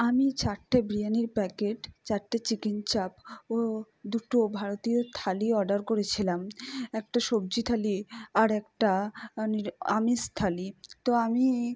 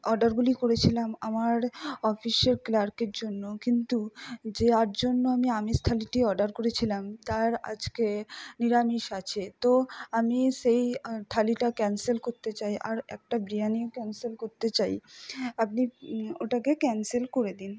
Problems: none marked